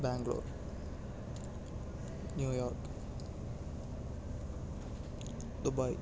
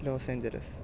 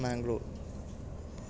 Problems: low volume